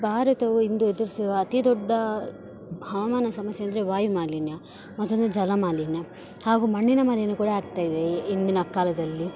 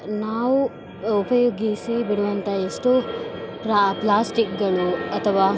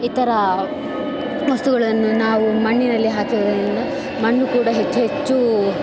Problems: background sounds at intervals